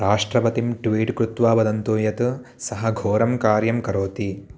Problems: none marked